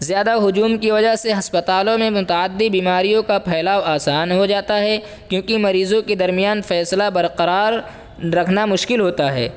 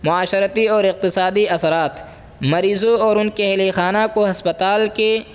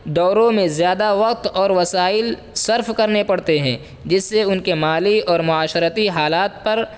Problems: constant background noise